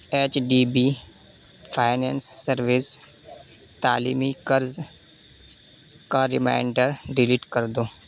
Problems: constant background noise